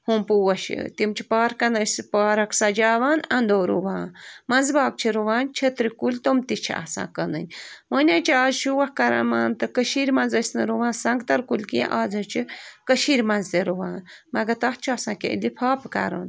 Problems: constant background noise